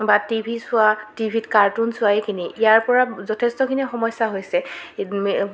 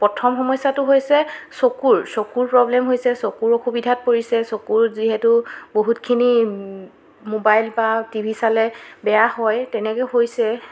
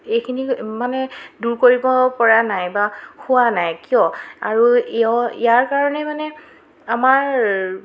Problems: constant background noise, background conversations at intervals